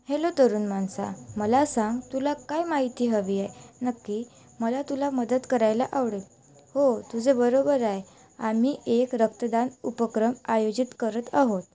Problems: none marked